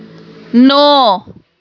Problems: none marked